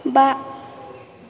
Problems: none marked